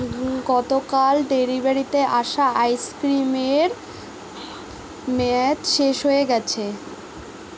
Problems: constant background noise